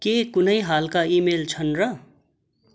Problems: constant background noise